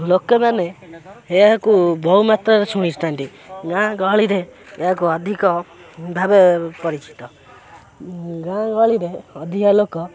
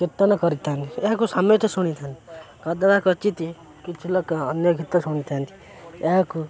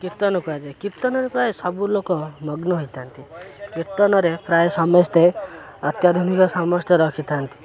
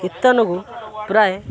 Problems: constant background noise, continuous background conversations